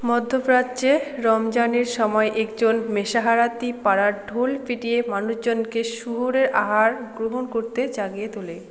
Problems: constant background noise, background conversations at intervals